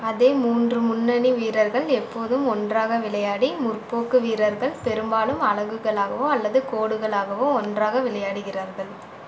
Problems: constant background noise